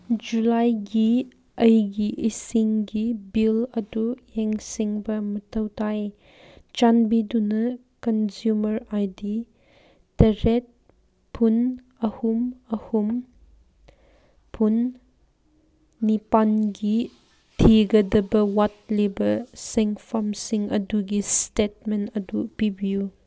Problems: none marked